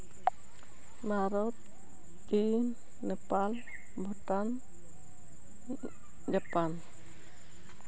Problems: none marked